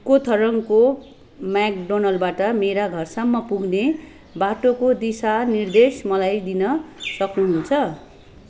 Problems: background sounds at intervals